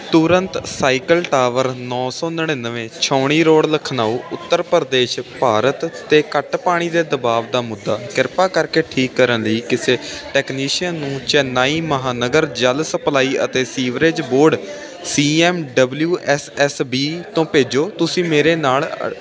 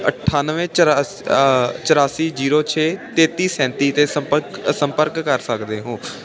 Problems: constant background noise